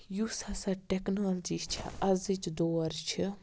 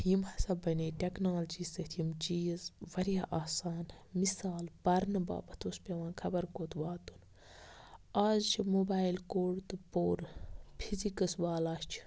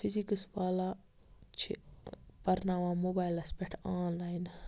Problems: background sounds at intervals